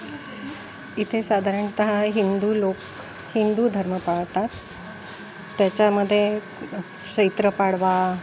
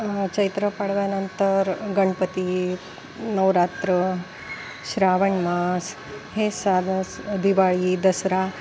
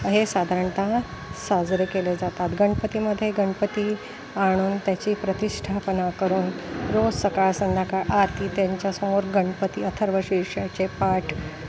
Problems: constant background noise, background conversations at intervals